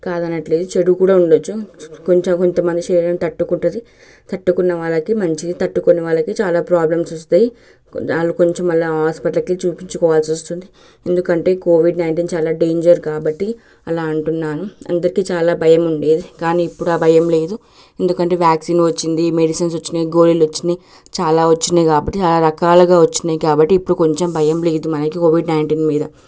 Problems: none marked